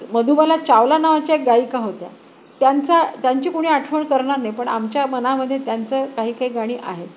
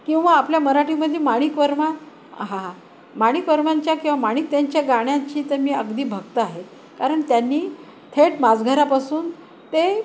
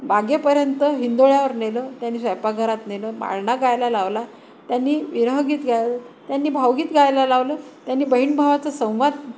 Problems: constant background noise, background conversations at intervals